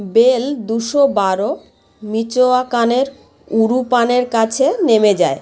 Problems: constant background noise, background conversations at intervals